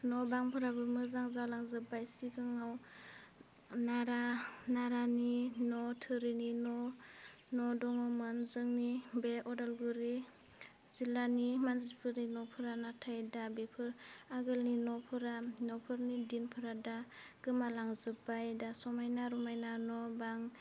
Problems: constant background noise